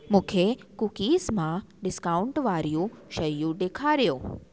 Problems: constant background noise, echo